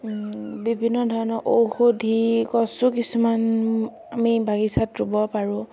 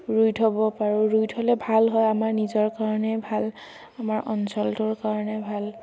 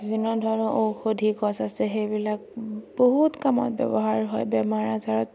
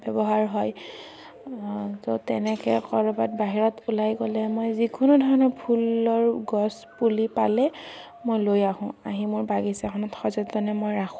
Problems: constant background noise